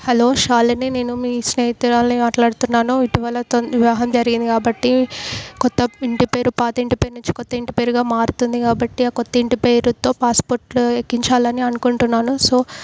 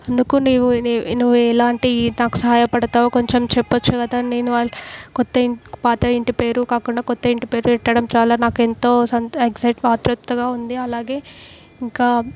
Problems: background sounds at intervals